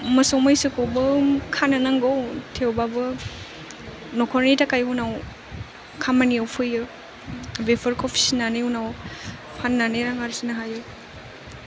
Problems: background sounds at intervals